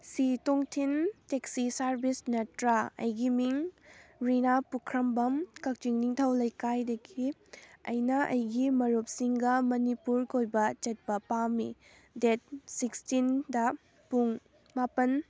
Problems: background sounds at intervals, background conversations at intervals